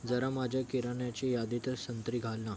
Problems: constant background noise